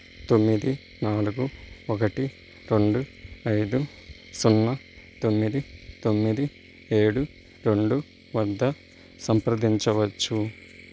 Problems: background sounds at intervals